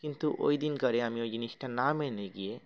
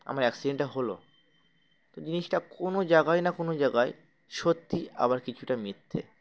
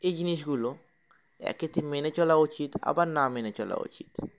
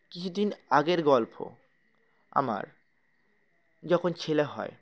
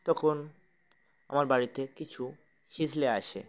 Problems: constant background noise, background conversations at intervals